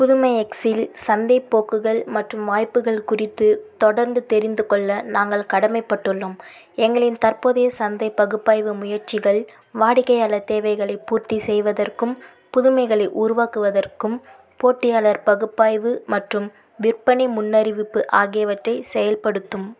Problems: none marked